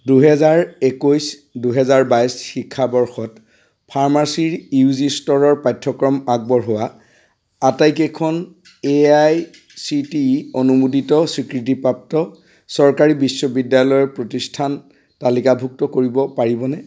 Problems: constant background noise